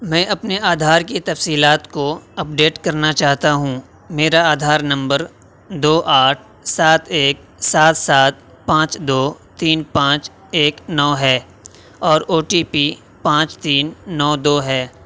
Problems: none marked